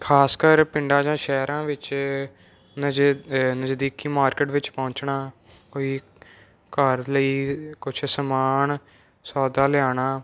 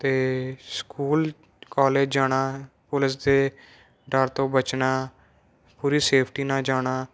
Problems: none marked